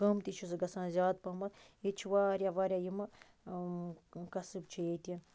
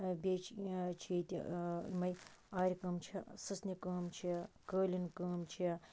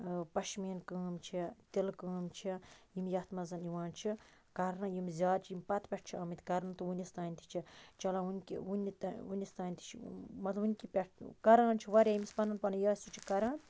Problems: background sounds at intervals, low volume